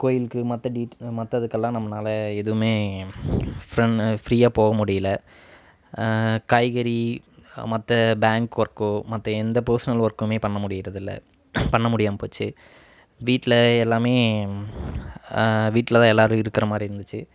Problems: background sounds at intervals